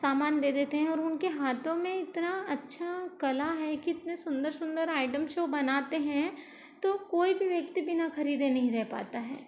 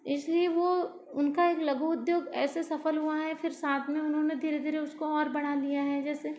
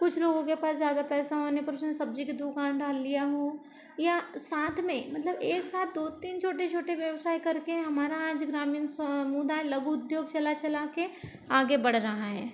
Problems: low volume